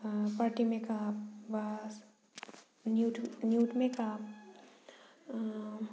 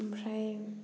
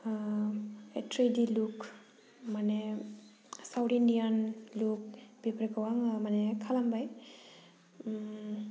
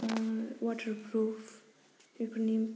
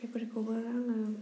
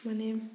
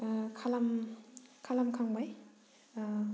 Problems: none marked